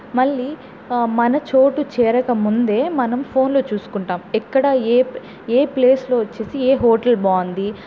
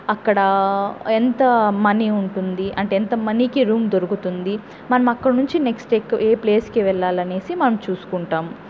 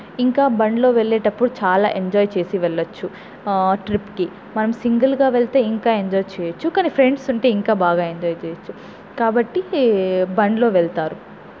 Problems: none marked